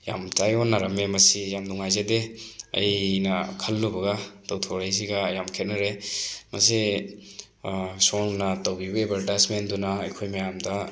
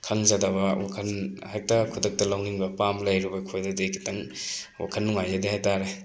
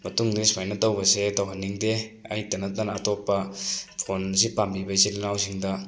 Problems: background sounds at intervals